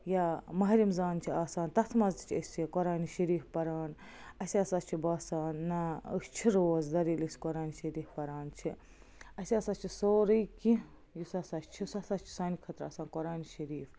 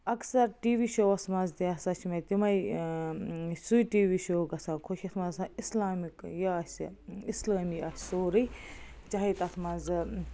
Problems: constant background noise